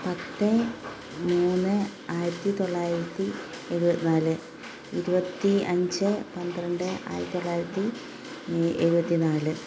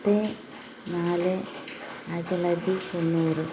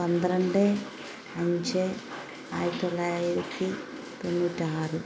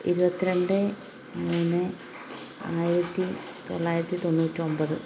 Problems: constant background noise